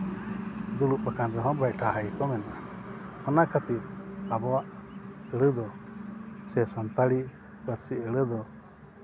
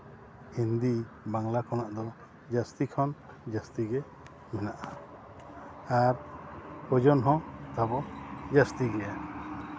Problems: constant background noise